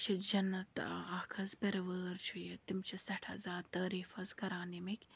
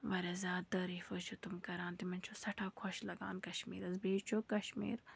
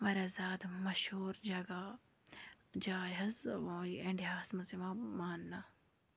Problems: background sounds at intervals, low volume